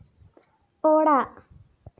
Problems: none marked